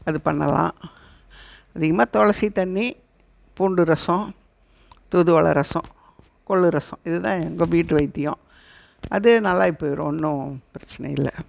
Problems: background sounds at intervals